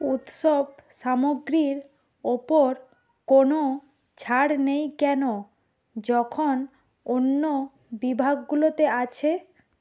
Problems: background conversations at intervals